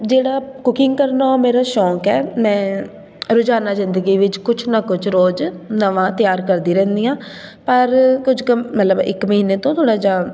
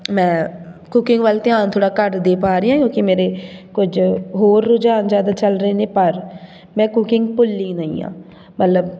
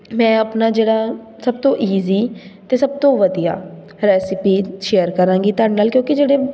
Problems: background sounds at intervals